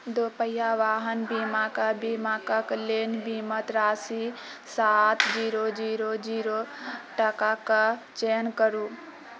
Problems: background sounds at intervals